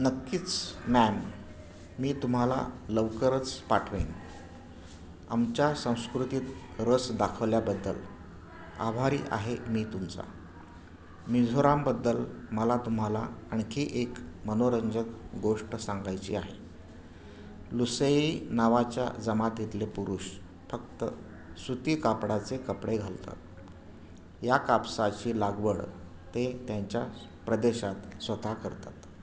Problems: constant background noise, background conversations at intervals